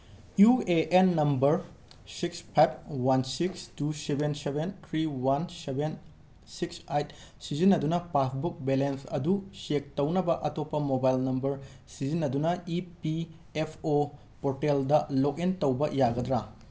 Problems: constant background noise